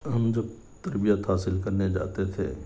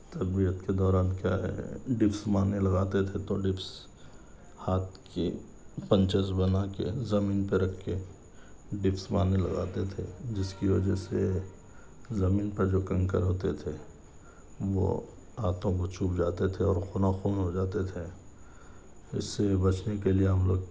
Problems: none marked